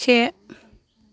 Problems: none marked